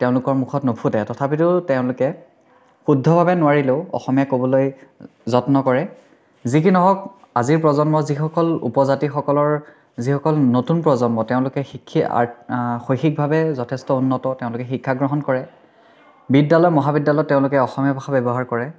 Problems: background sounds at intervals